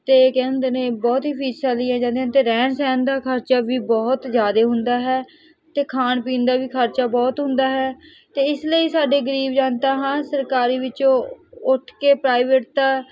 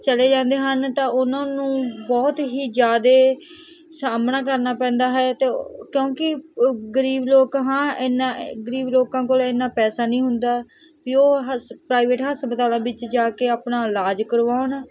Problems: none marked